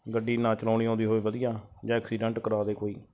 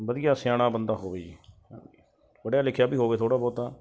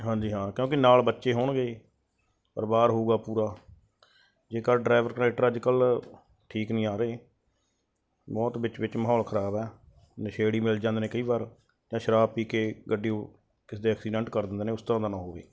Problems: none marked